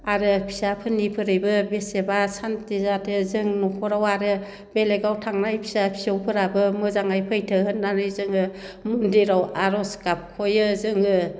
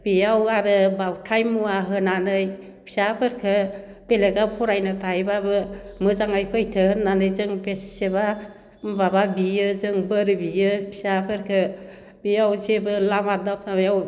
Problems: none marked